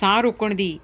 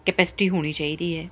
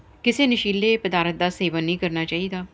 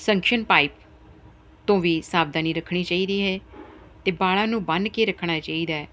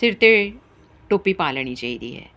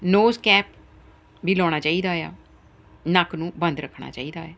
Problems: none marked